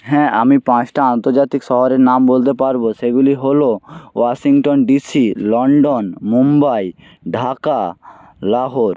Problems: none marked